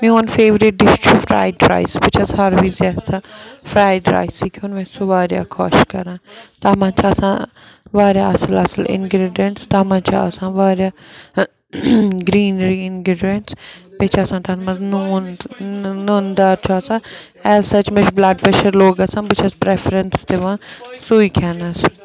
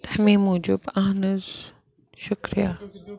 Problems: continuous background conversations